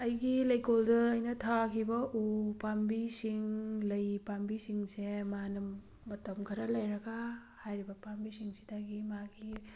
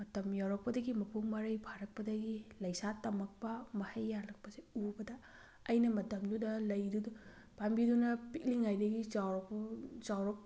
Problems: background sounds at intervals